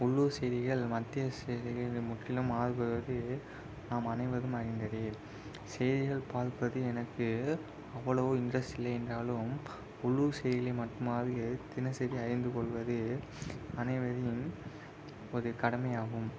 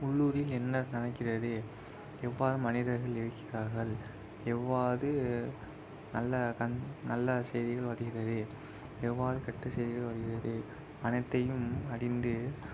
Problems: constant background noise, low volume